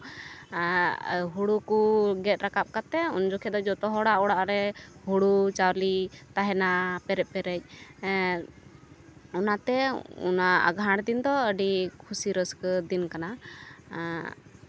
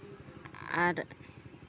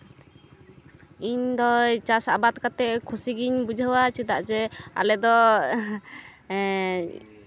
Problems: none marked